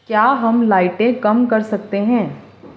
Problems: constant background noise